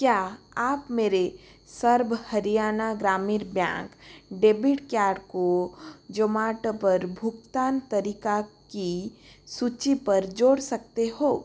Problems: none marked